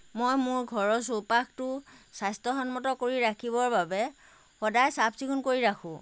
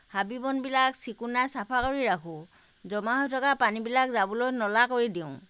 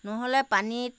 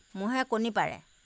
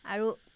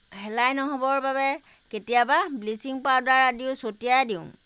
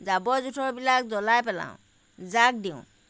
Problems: none marked